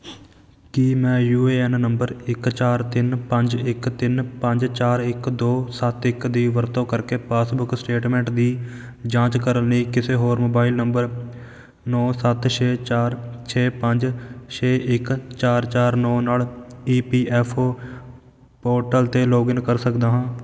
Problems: none marked